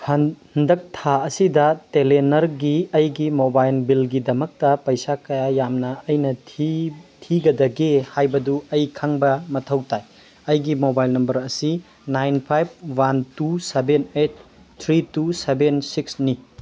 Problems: background sounds at intervals